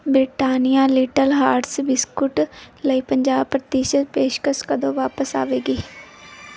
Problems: background sounds at intervals